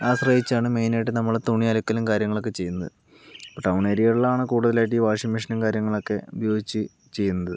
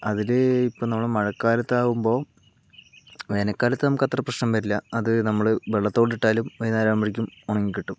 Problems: constant background noise, low volume